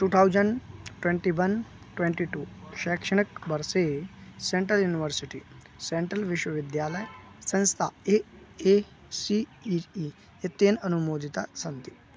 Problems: none marked